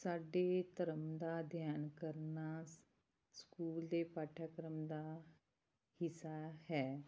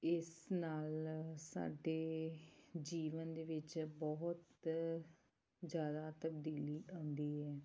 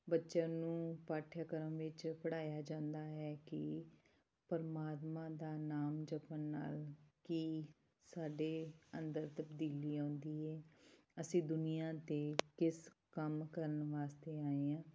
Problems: background sounds at intervals